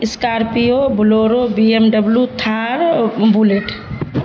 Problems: constant background noise, low volume